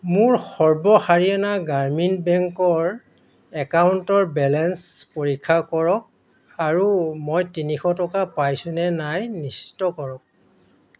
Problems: constant background noise, background conversations at intervals